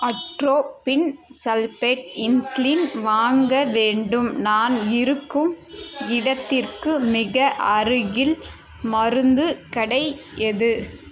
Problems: constant background noise